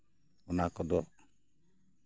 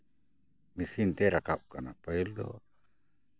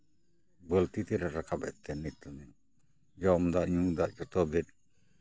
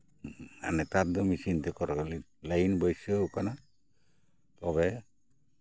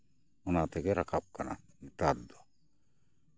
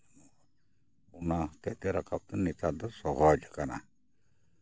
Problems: none marked